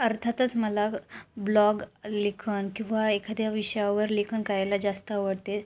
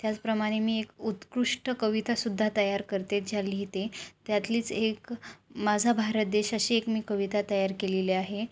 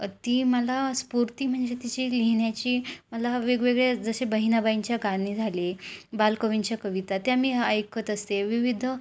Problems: background sounds at intervals